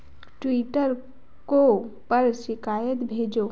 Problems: constant background noise